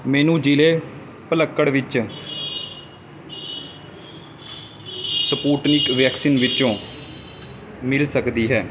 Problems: constant background noise